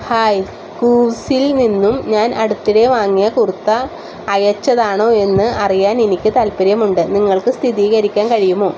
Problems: constant background noise